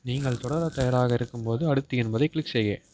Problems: background sounds at intervals